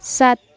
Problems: none marked